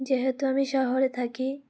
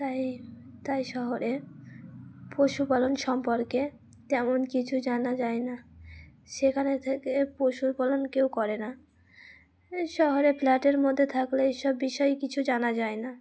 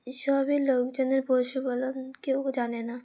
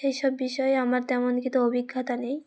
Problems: background sounds at intervals